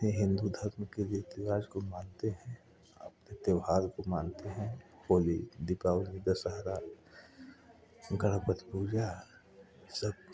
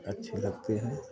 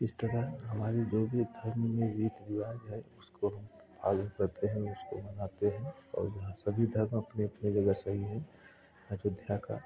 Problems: background sounds at intervals, continuous background conversations